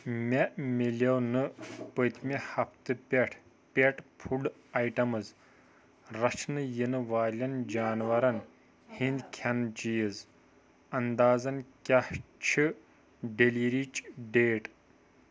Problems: background conversations at intervals